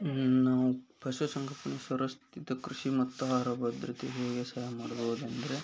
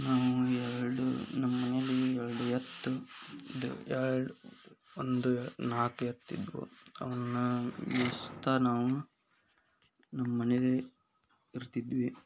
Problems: none marked